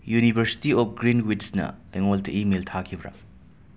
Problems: none marked